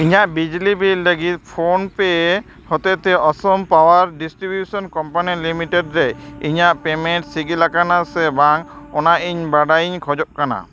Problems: none marked